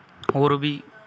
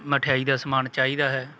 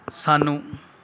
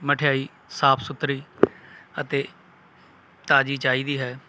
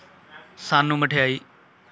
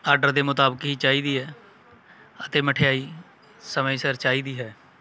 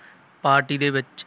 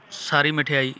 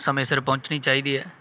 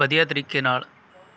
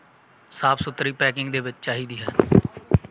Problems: background sounds at intervals